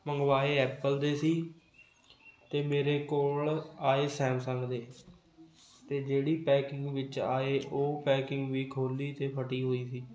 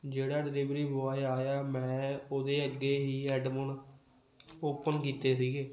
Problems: background conversations at intervals